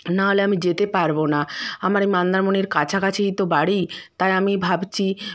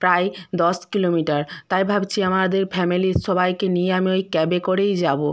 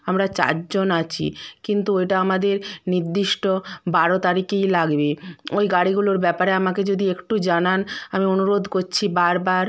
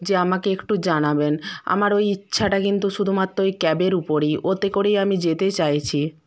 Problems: background sounds at intervals